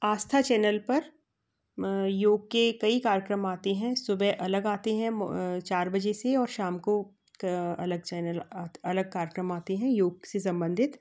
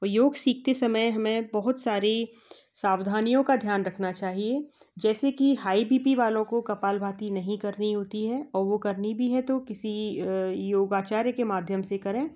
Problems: none marked